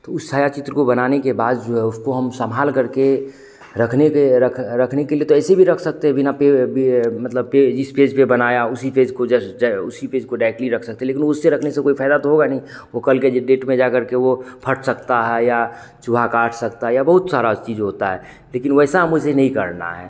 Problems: constant background noise, background conversations at intervals